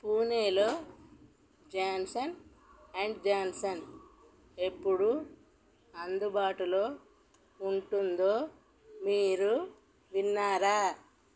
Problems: none marked